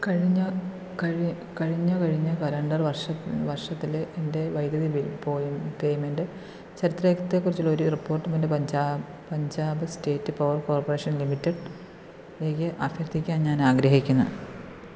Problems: constant background noise, low volume